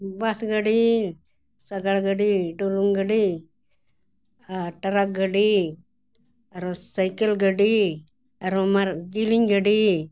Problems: none marked